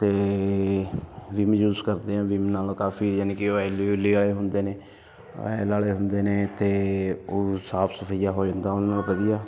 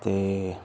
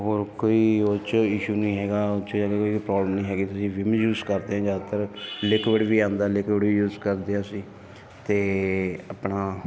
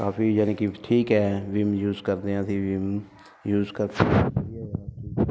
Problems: constant background noise